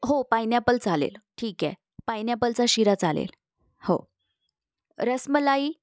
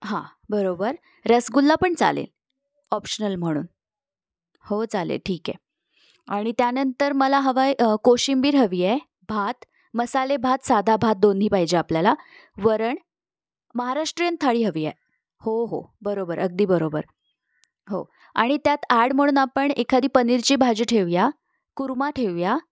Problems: none marked